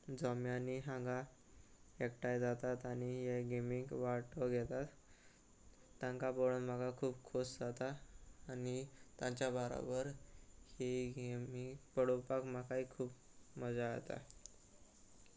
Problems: constant background noise